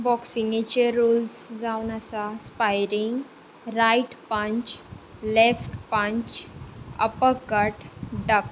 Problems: constant background noise